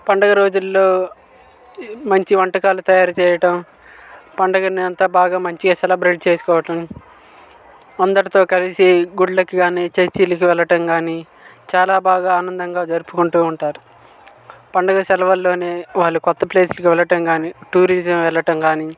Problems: constant background noise, background conversations at intervals